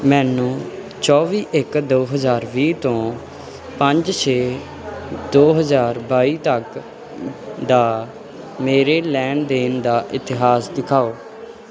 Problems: background sounds at intervals